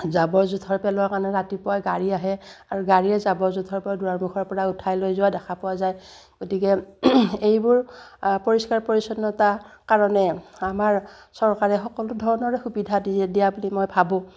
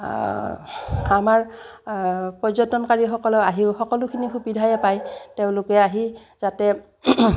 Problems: none marked